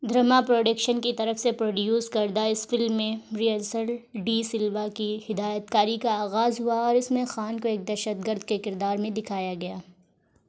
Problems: none marked